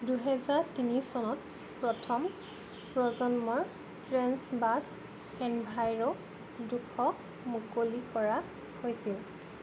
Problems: constant background noise